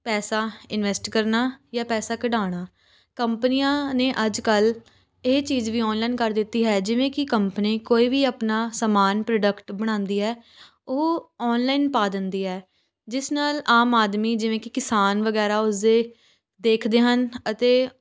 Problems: constant background noise, background conversations at intervals